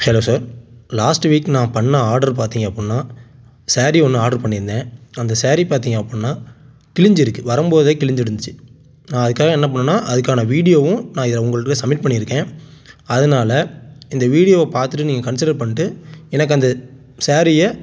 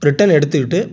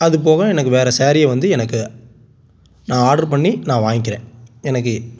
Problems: none marked